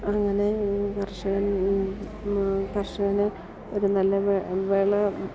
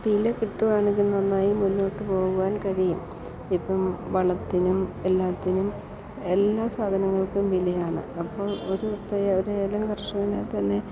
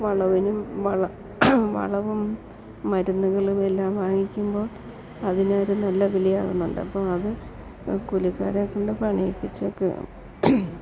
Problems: none marked